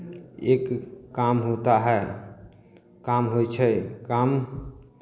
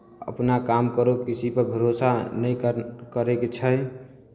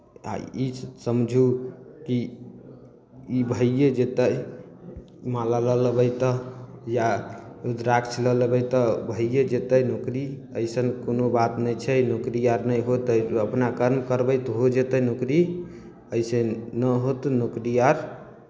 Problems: none marked